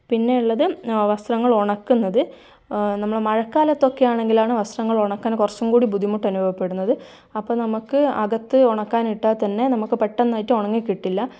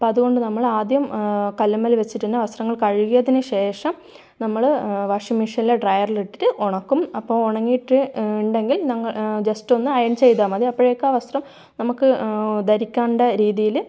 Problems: none marked